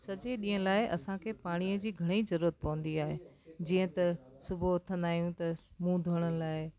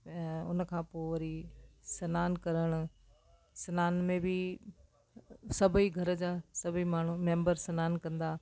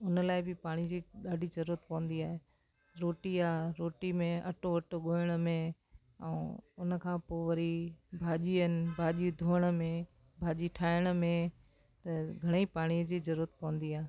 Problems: constant background noise